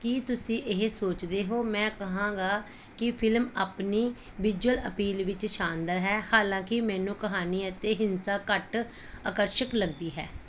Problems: none marked